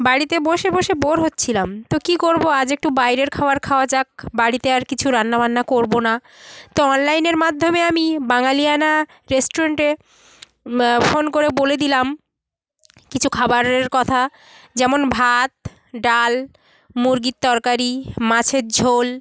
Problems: continuous background conversations